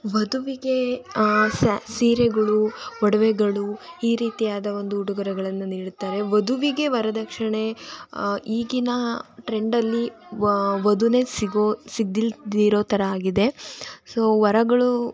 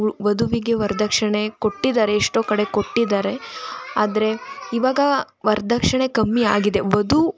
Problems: constant background noise